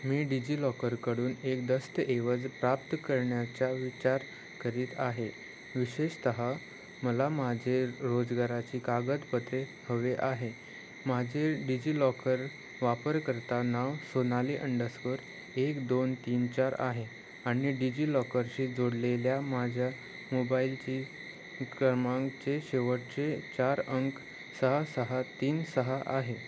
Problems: constant background noise